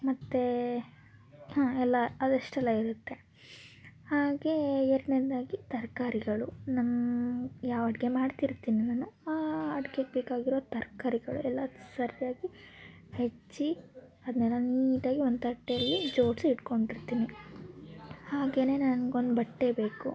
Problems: continuous background conversations